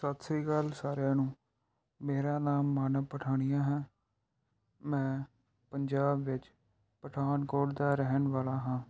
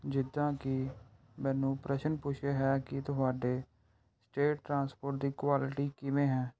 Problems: background sounds at intervals